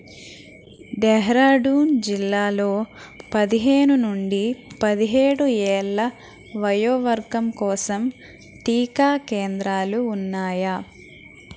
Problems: constant background noise